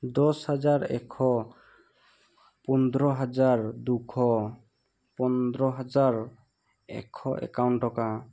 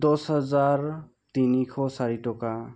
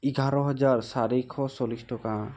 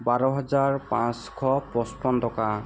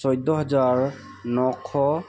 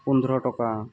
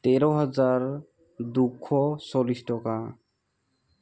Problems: background sounds at intervals